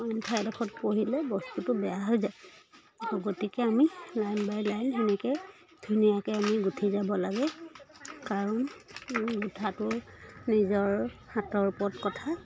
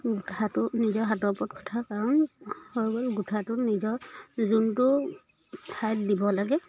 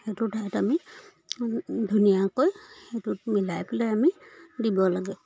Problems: continuous background conversations